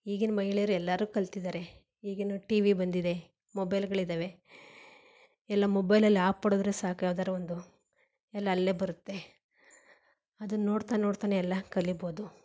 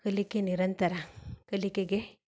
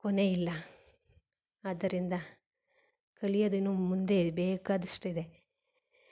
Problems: none marked